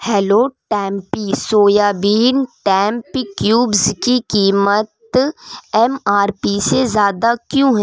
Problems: constant background noise